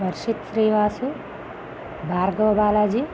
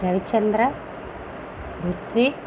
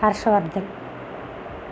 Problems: constant background noise